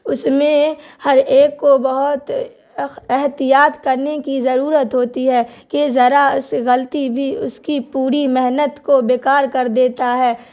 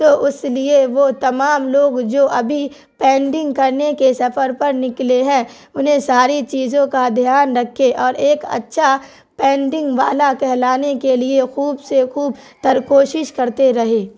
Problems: constant background noise